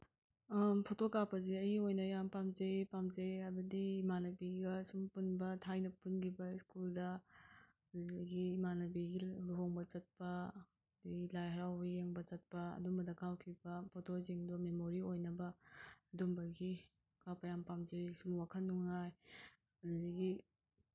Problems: none marked